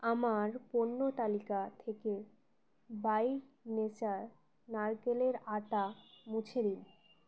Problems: constant background noise